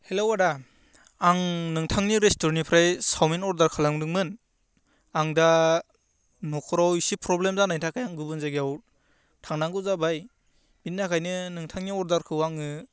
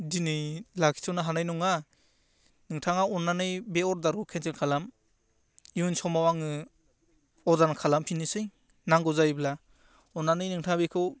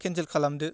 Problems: constant background noise